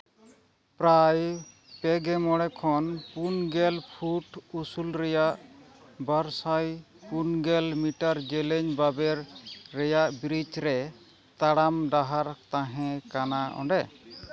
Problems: constant background noise